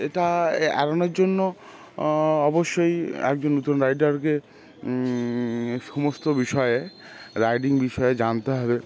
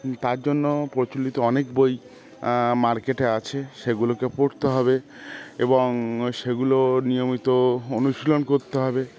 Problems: constant background noise, background conversations at intervals